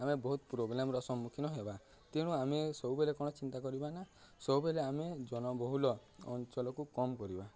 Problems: none marked